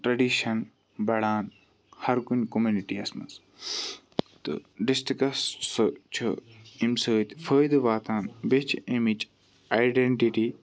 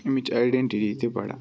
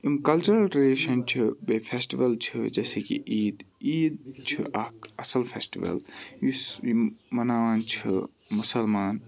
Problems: background sounds at intervals, background conversations at intervals